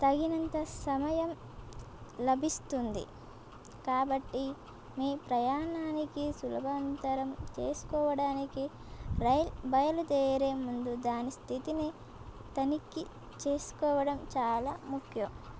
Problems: constant background noise